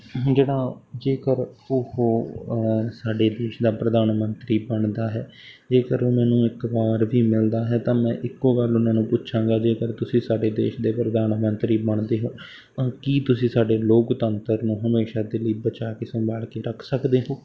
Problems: constant background noise